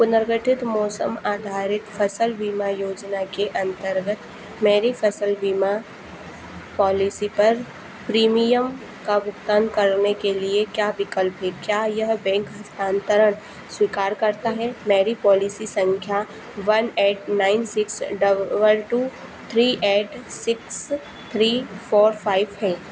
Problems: none marked